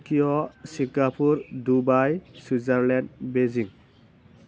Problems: constant background noise